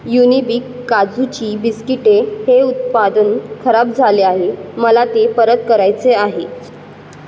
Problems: background sounds at intervals